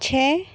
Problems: none marked